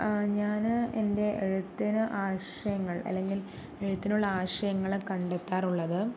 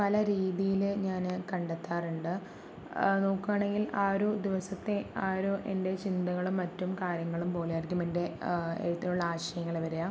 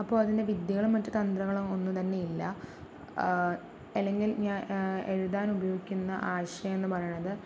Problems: low volume